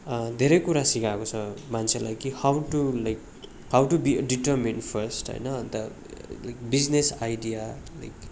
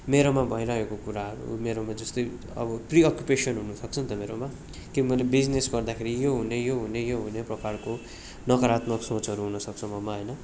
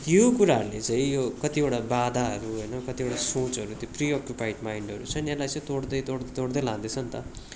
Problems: none marked